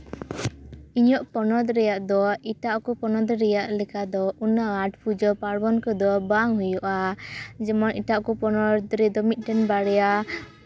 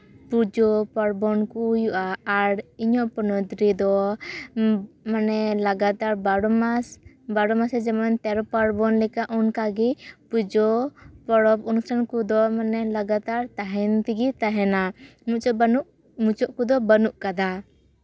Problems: none marked